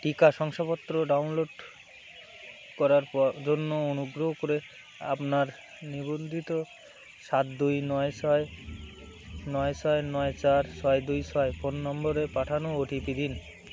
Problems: none marked